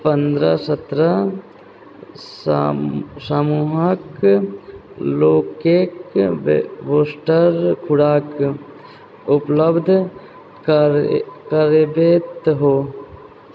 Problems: background conversations at intervals